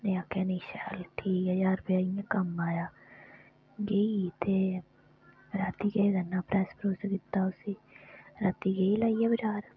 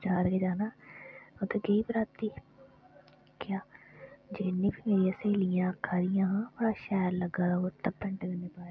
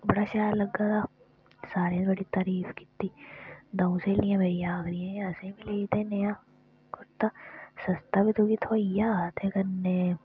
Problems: background sounds at intervals